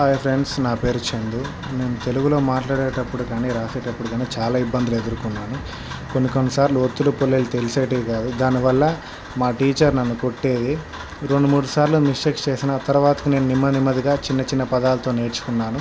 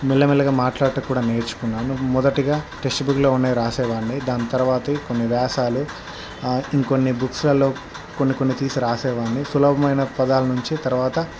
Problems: constant background noise